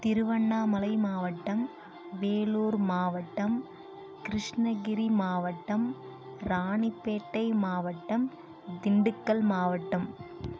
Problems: none marked